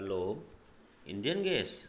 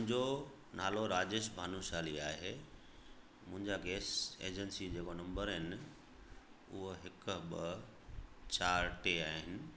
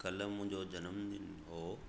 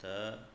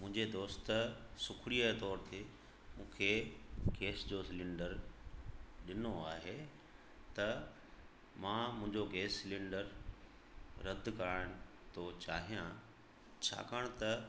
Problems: constant background noise, echo